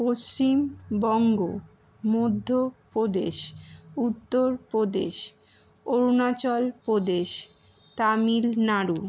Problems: none marked